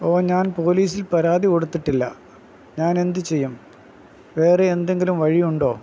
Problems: constant background noise